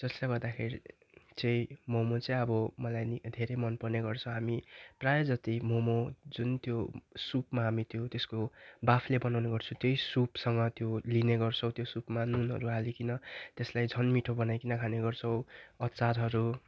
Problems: background sounds at intervals